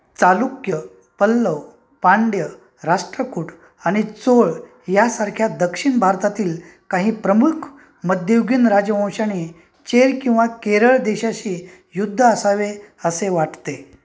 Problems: background sounds at intervals, background conversations at intervals